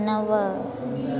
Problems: constant background noise